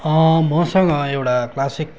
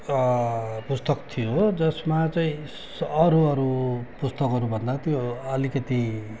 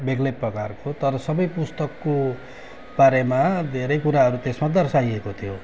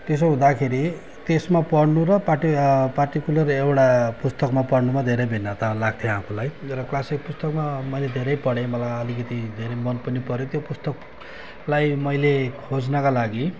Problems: constant background noise, background conversations at intervals